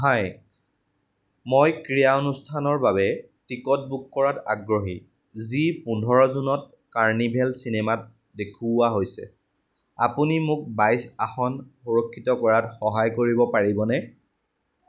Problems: none marked